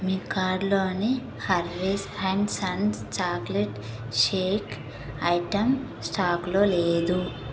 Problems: constant background noise